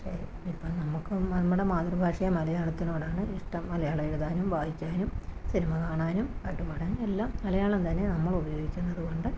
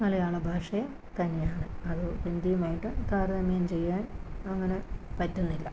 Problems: constant background noise, low volume